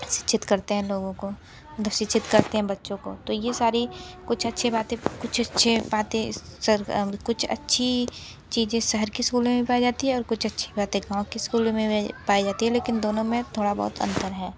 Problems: constant background noise, continuous background conversations